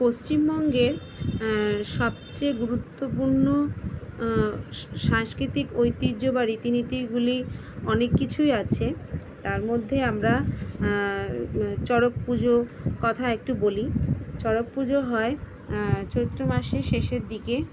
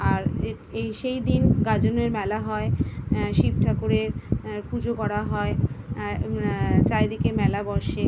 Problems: constant background noise